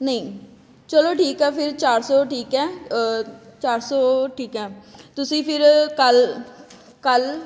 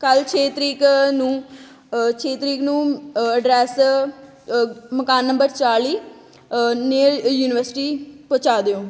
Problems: none marked